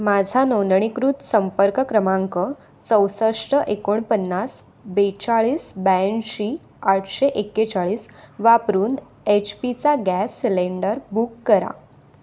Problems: none marked